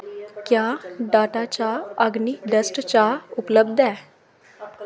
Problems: background sounds at intervals